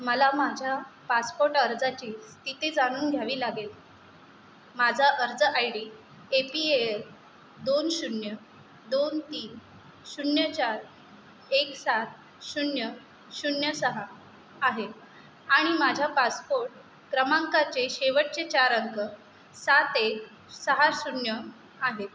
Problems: constant background noise